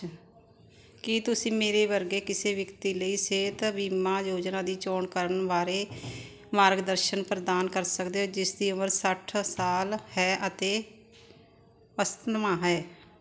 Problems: constant background noise